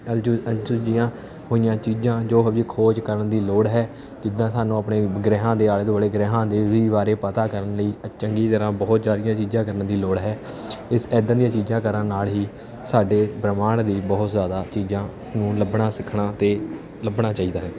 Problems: constant background noise